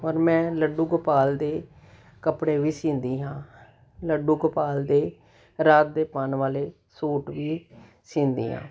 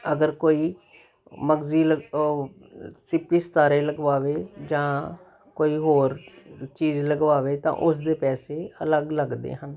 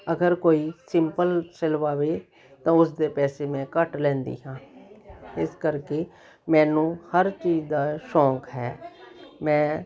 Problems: none marked